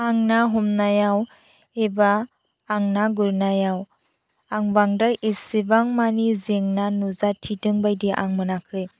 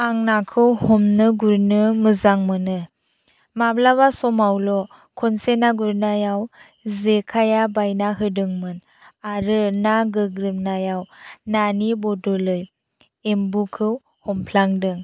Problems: none marked